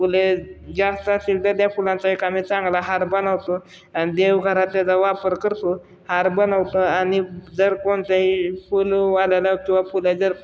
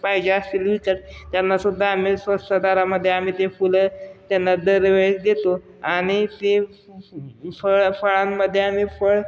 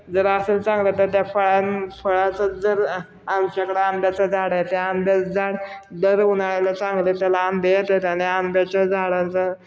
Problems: none marked